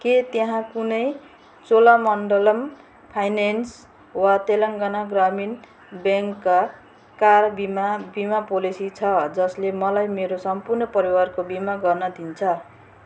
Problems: constant background noise